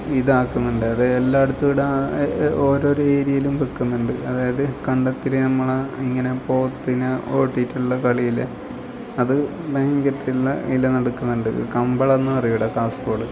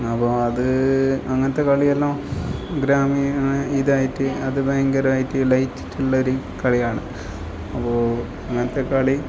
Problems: background sounds at intervals